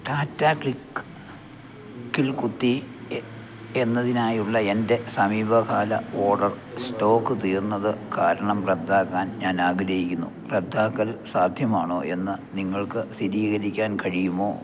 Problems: low volume